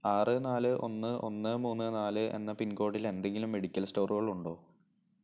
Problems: low volume